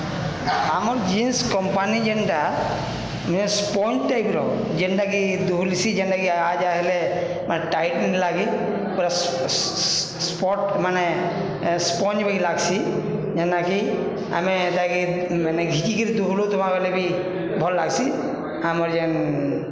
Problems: constant background noise